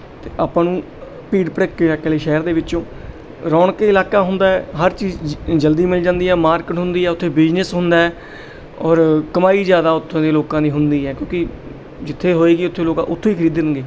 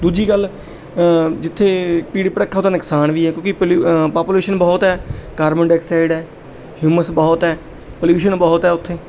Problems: background sounds at intervals